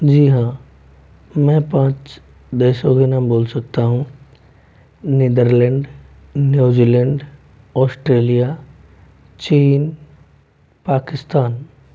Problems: constant background noise